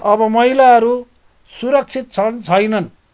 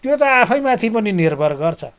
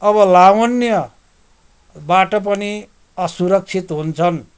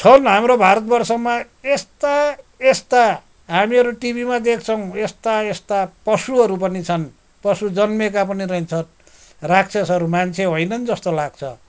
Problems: background sounds at intervals